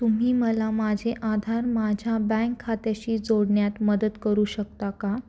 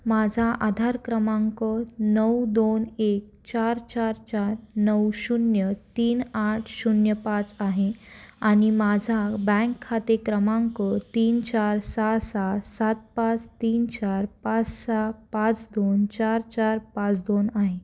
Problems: constant background noise